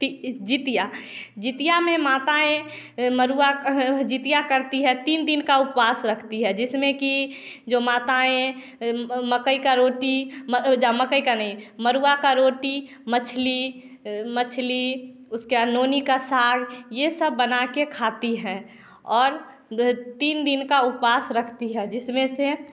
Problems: none marked